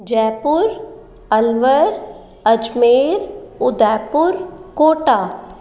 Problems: none marked